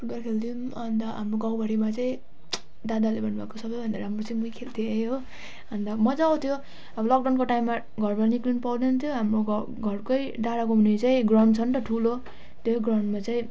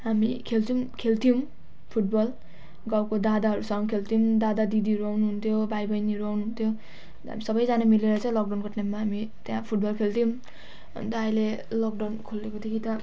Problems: none marked